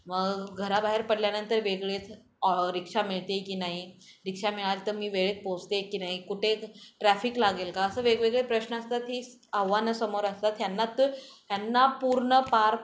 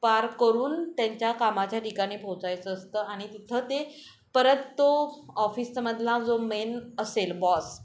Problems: constant background noise, background conversations at intervals